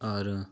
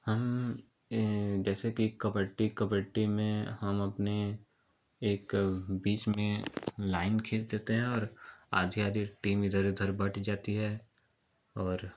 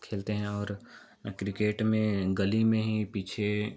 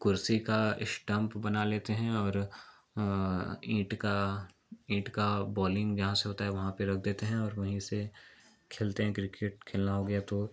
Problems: none marked